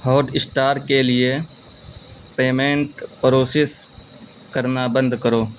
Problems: constant background noise